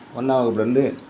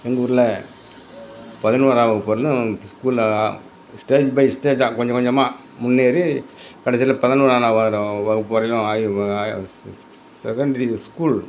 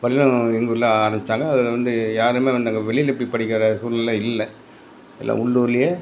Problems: background sounds at intervals